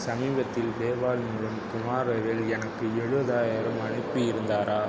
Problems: background sounds at intervals, low volume